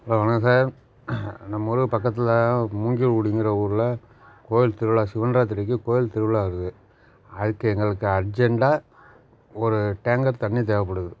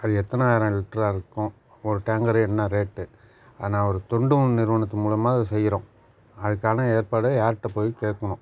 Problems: background sounds at intervals